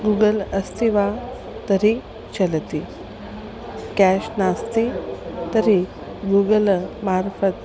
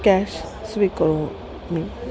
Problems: constant background noise, continuous background conversations